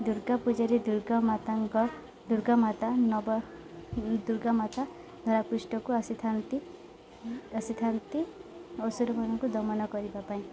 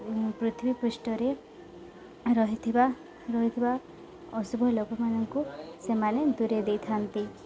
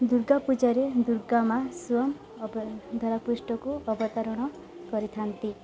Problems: none marked